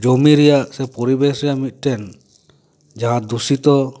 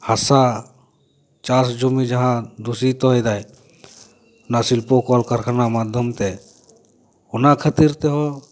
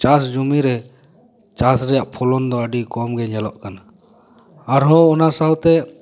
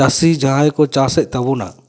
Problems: none marked